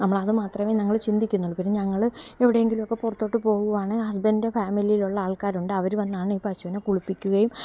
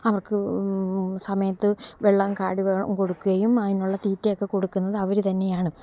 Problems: low volume